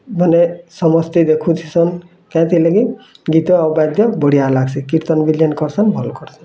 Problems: constant background noise, continuous background conversations